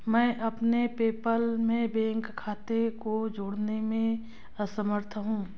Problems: none marked